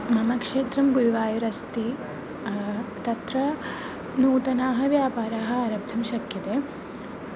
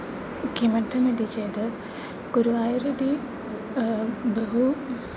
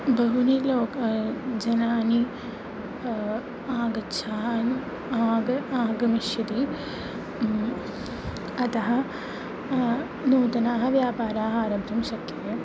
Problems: none marked